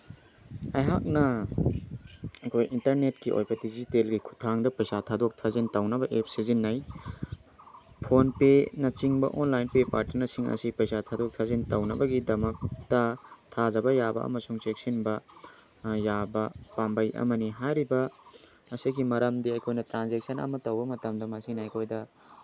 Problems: background conversations at intervals